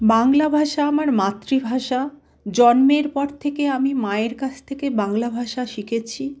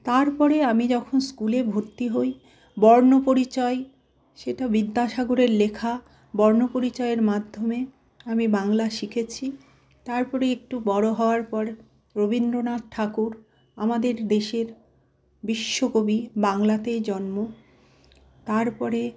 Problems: none marked